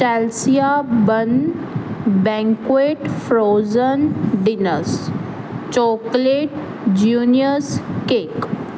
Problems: constant background noise